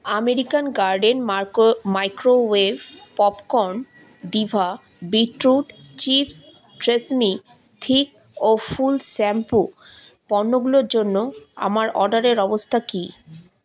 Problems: none marked